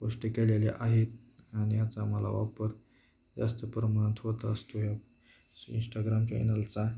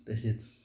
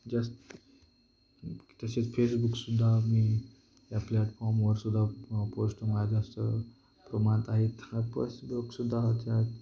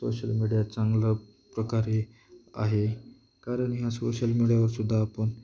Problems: constant background noise, background conversations at intervals